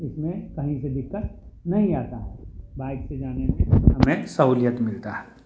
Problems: constant background noise, continuous background conversations